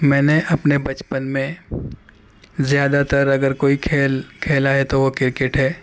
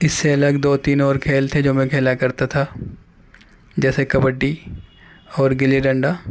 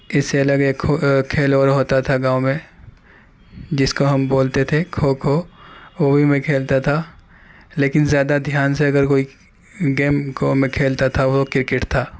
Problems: background sounds at intervals